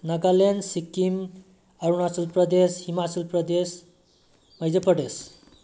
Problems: low volume